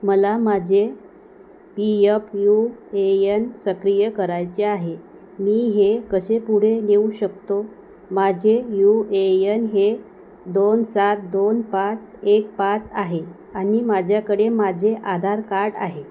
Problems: none marked